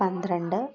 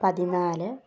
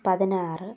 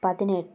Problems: background sounds at intervals, low volume